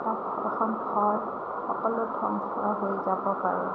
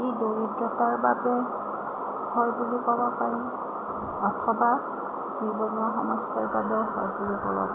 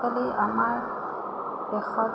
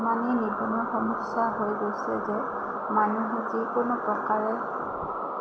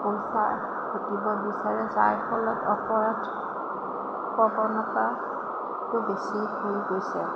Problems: constant background noise, low volume